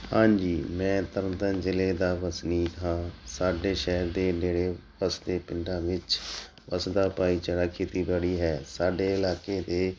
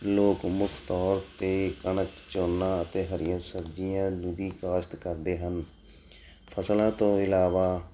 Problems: none marked